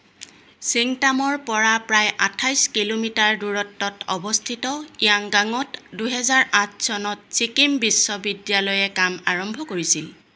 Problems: constant background noise